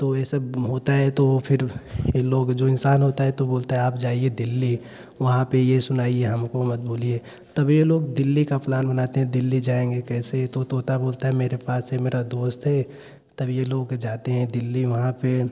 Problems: background sounds at intervals